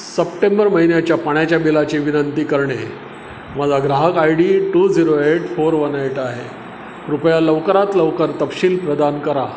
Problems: constant background noise